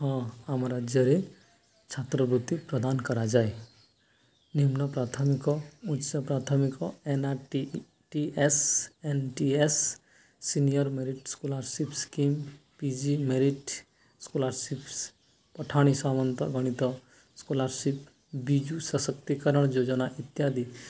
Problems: background sounds at intervals